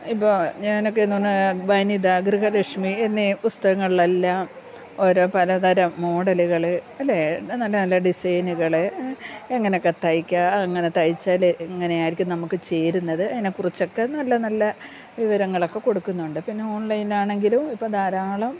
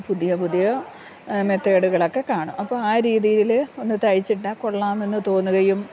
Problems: low volume